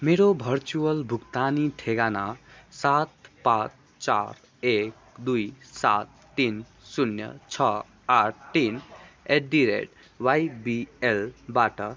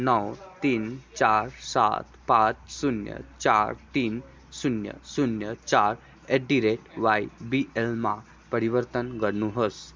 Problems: background sounds at intervals